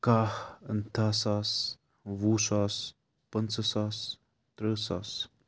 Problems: background sounds at intervals